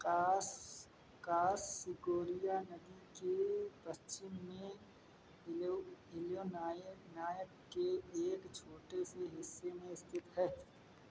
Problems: background sounds at intervals